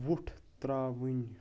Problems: none marked